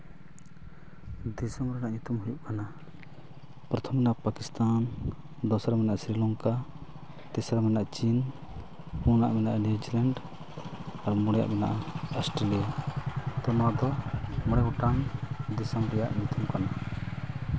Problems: constant background noise